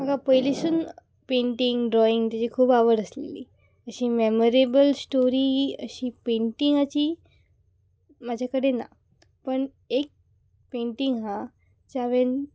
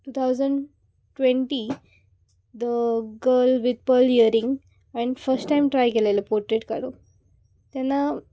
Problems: background sounds at intervals